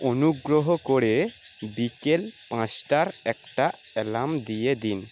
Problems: constant background noise